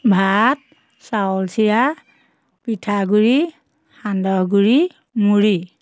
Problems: constant background noise